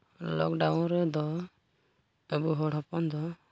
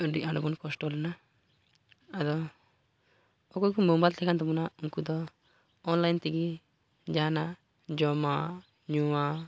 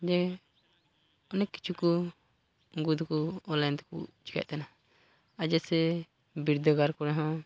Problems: background sounds at intervals, low volume